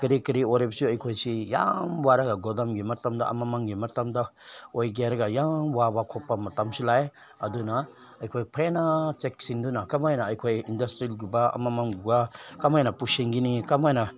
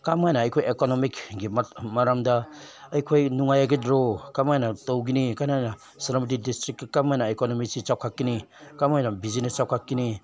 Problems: none marked